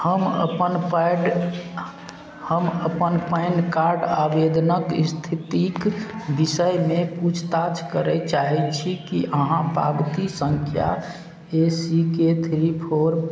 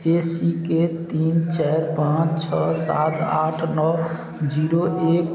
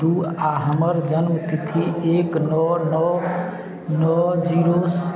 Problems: background sounds at intervals